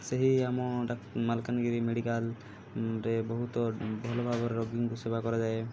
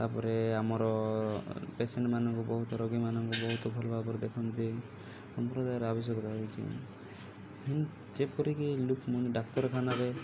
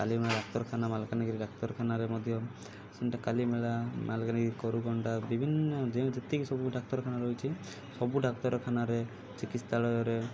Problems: low volume